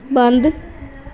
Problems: none marked